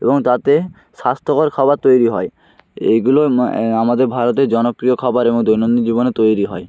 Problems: constant background noise